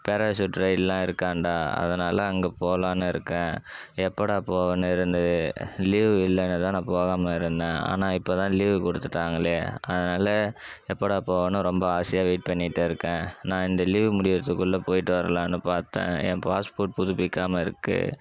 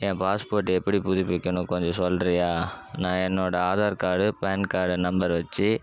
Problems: background sounds at intervals